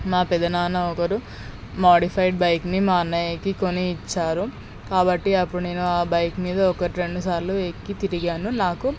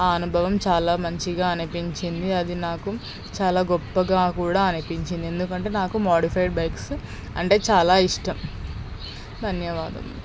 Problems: background sounds at intervals